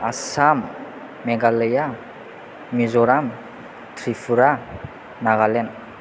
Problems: constant background noise